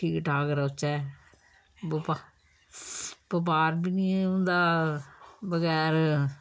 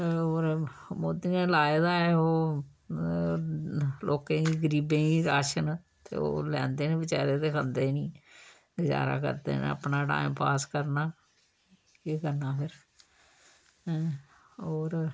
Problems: low volume